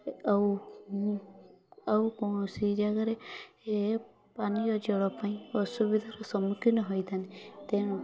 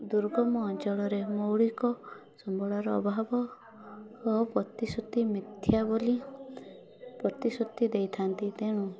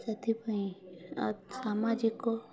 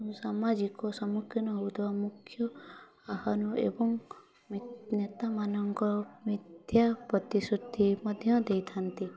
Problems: constant background noise, continuous background conversations